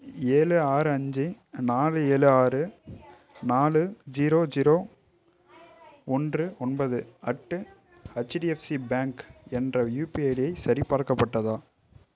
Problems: none marked